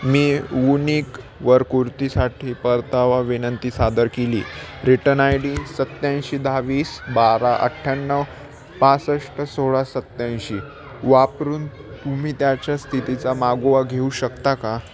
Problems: constant background noise, continuous background conversations